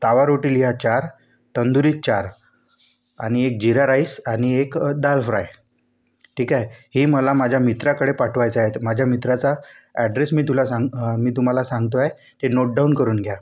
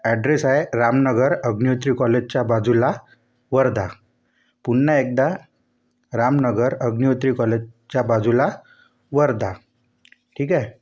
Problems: none marked